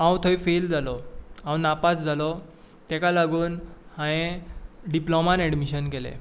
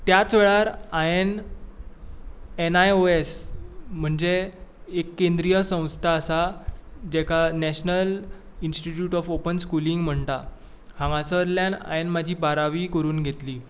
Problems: background sounds at intervals